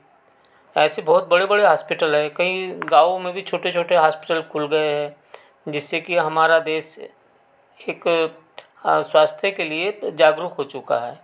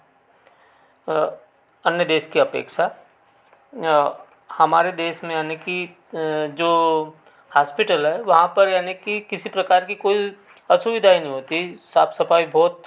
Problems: constant background noise